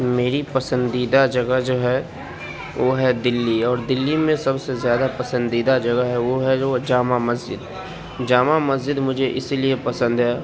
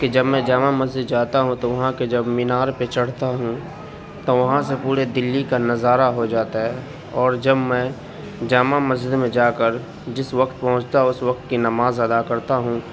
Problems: none marked